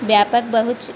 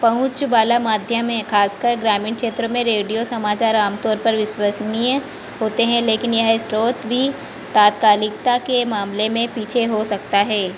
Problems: constant background noise, background conversations at intervals